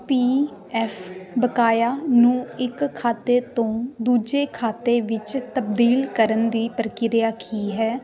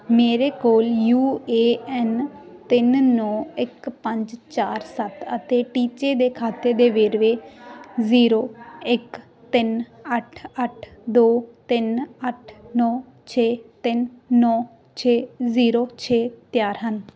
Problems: continuous background conversations